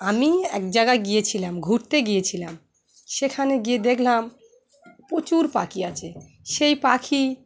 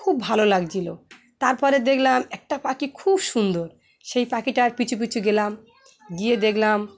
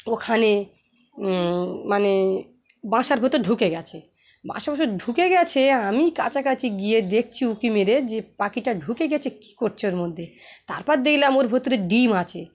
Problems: none marked